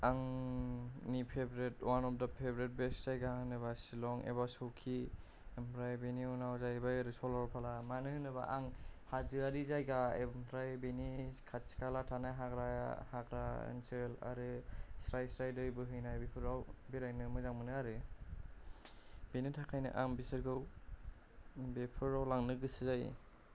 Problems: low volume